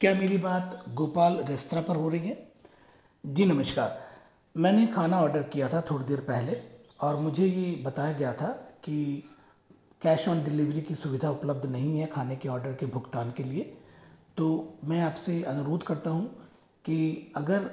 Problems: echo